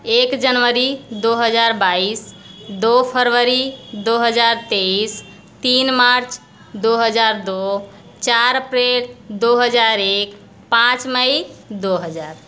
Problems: background sounds at intervals